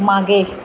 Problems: constant background noise